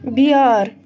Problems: constant background noise